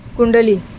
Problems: constant background noise